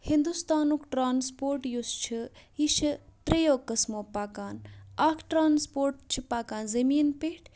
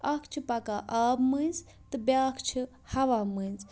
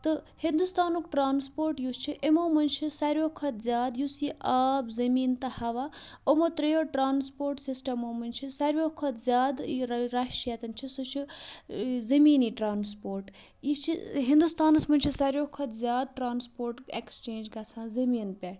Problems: background sounds at intervals